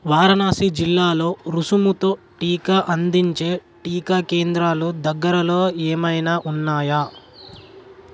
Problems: constant background noise